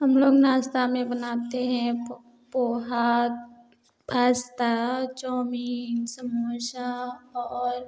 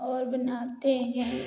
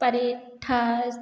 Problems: none marked